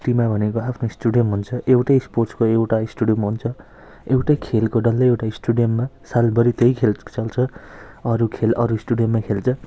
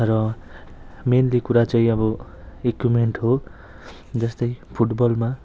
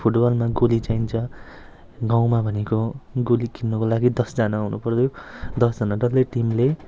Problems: constant background noise